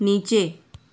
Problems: none marked